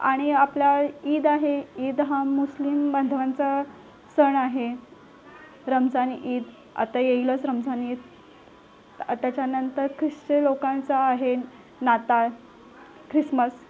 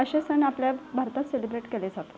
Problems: none marked